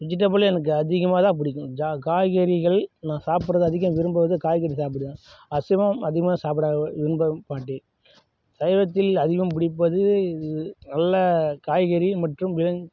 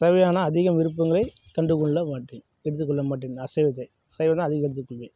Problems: none marked